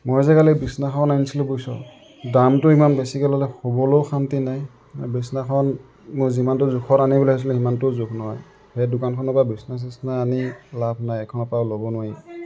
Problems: background sounds at intervals, background conversations at intervals